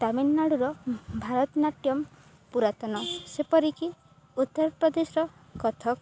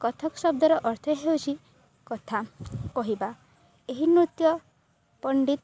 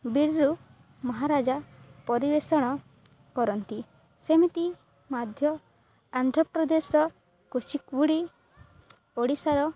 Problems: none marked